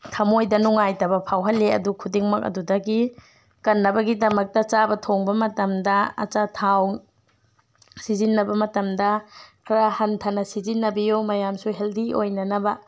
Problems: none marked